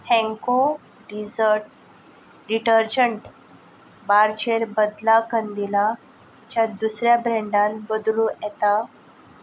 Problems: constant background noise